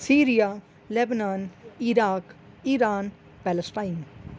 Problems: constant background noise